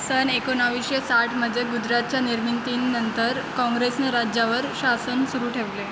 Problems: constant background noise